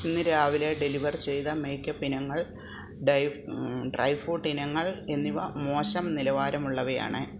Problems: constant background noise